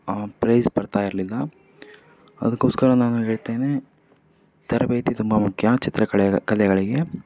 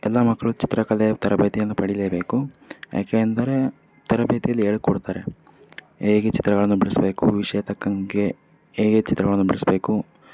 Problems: none marked